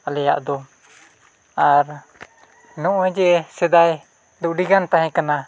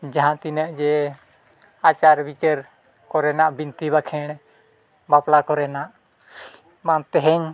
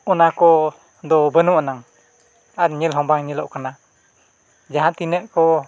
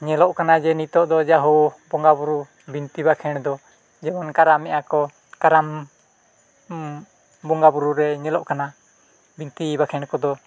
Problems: none marked